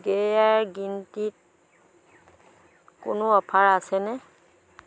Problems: constant background noise